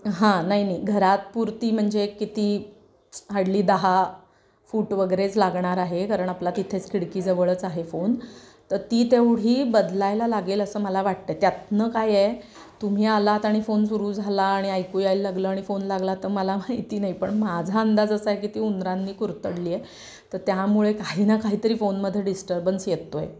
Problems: background sounds at intervals